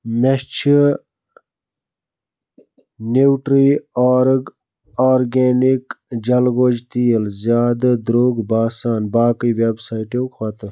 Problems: none marked